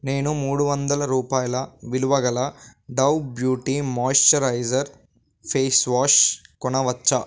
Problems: constant background noise